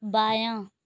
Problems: none marked